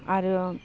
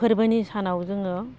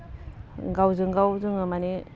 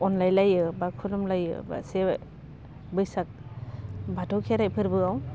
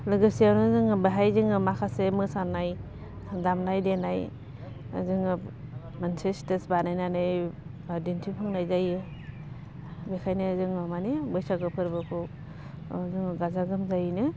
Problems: low volume